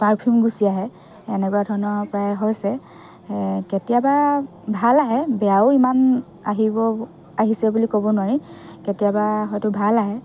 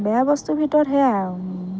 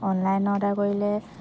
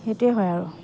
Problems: continuous background conversations